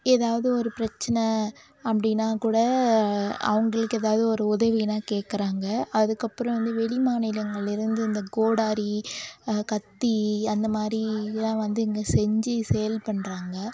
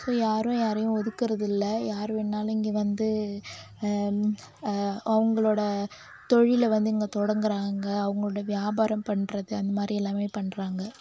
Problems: background sounds at intervals